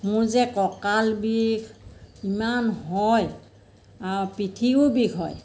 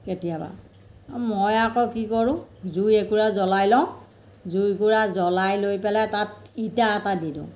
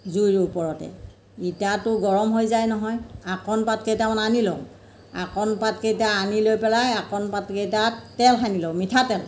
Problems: constant background noise